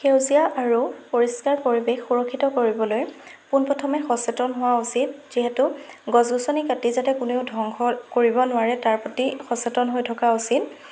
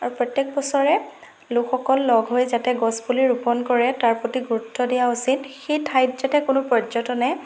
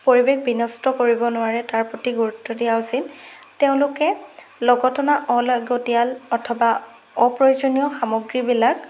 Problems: constant background noise